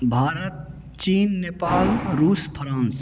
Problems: background sounds at intervals